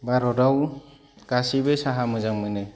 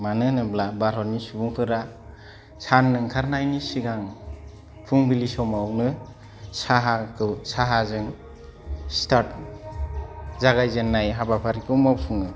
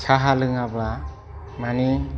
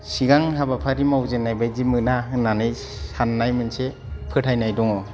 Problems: low volume